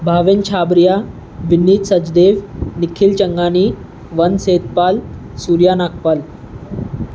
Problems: constant background noise